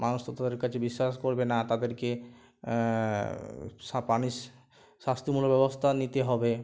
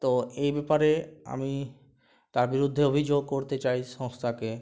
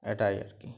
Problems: none marked